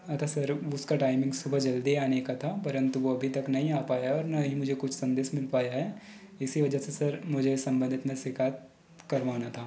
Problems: background sounds at intervals